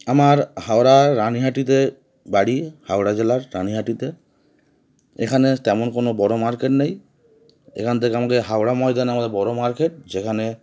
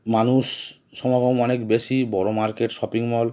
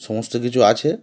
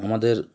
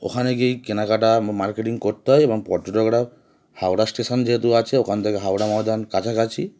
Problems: background sounds at intervals